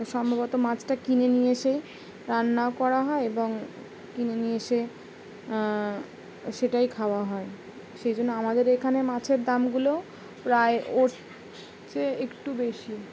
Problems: background sounds at intervals